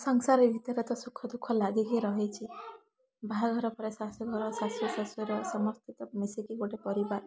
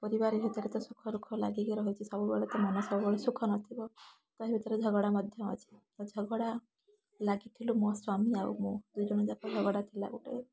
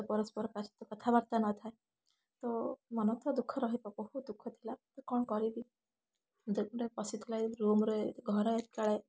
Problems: none marked